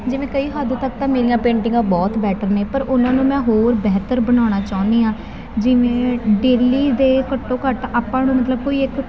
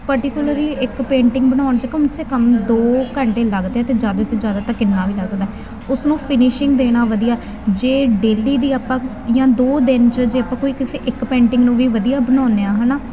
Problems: constant background noise